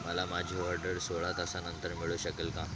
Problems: none marked